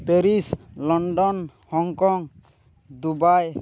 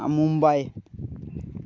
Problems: constant background noise